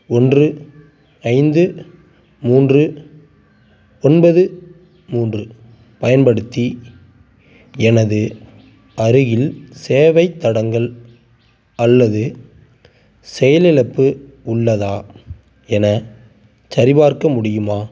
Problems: none marked